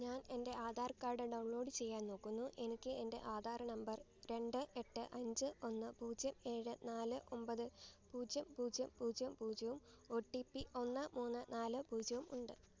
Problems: low volume